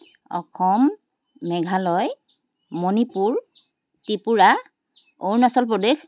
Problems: constant background noise